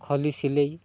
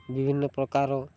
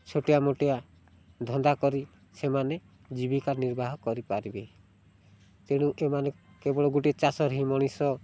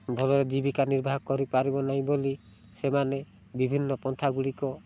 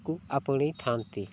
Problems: none marked